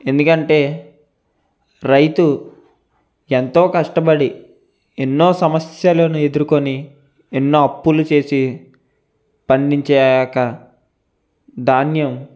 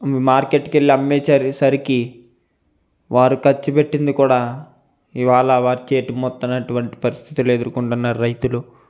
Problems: constant background noise